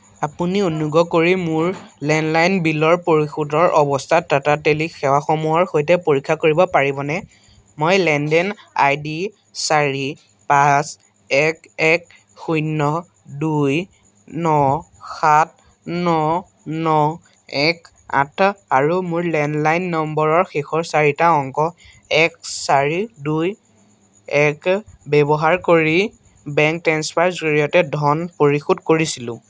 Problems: constant background noise